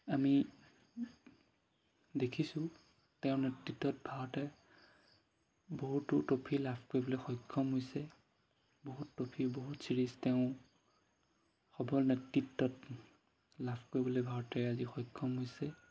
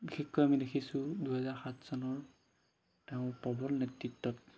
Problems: background sounds at intervals